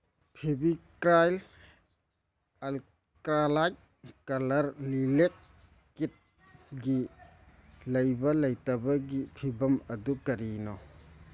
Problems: none marked